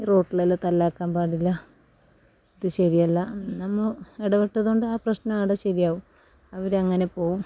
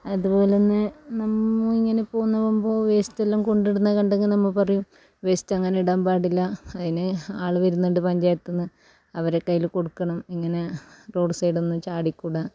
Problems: low volume